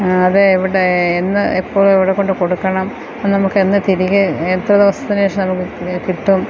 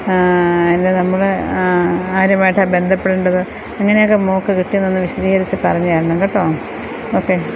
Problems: constant background noise